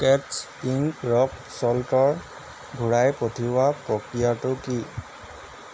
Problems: constant background noise